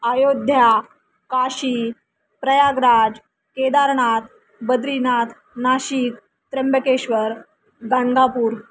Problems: none marked